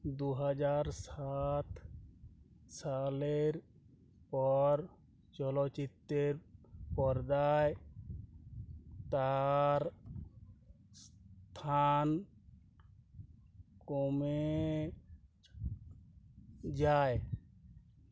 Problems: none marked